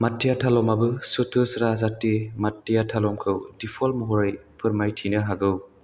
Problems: constant background noise